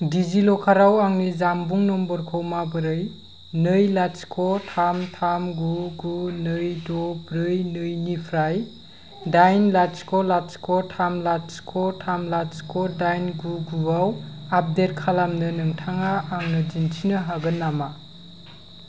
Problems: constant background noise